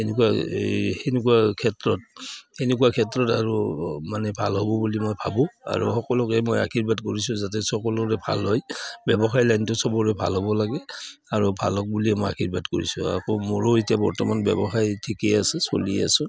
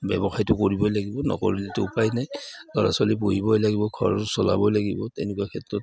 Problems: background sounds at intervals